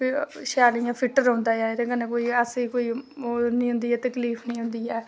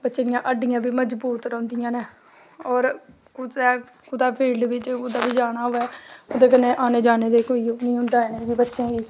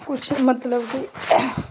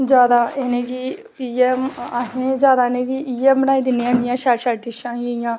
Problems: background sounds at intervals